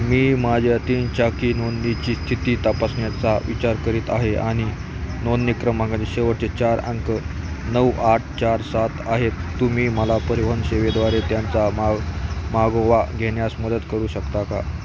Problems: constant background noise